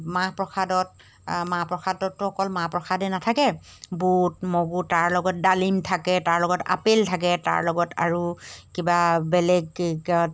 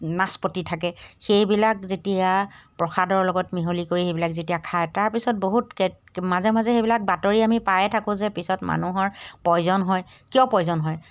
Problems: none marked